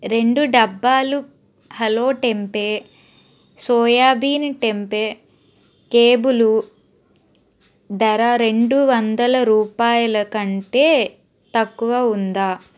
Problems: constant background noise